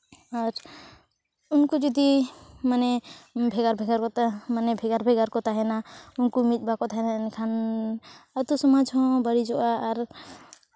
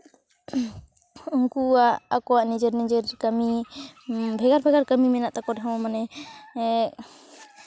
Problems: constant background noise, background conversations at intervals